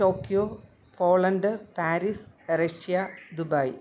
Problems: none marked